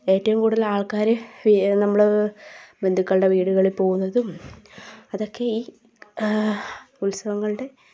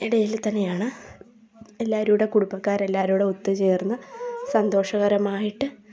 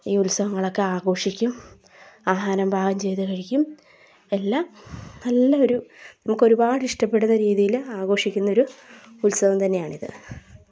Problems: background sounds at intervals